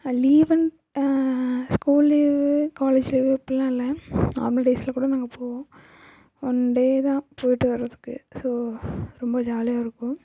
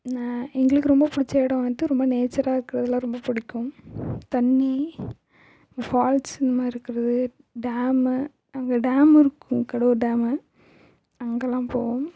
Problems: echo, low volume